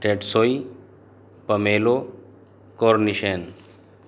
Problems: none marked